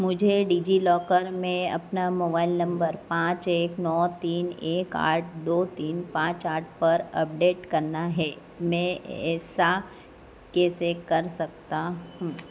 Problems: echo